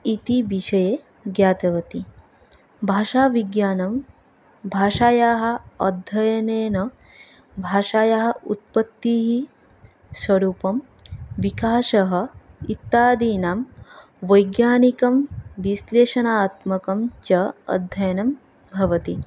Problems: background sounds at intervals